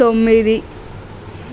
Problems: constant background noise